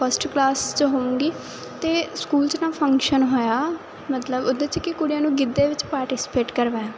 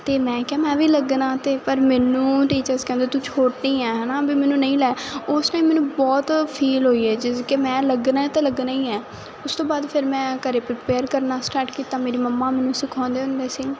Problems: continuous background conversations